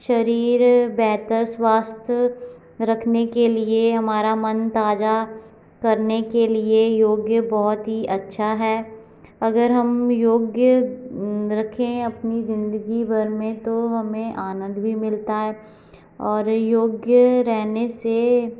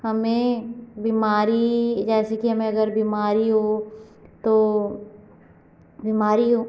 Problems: constant background noise